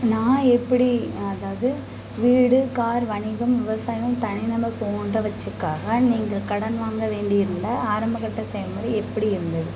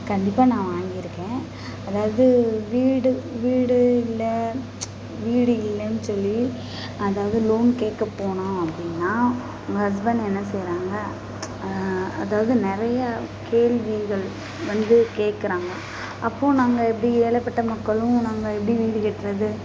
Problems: constant background noise, background conversations at intervals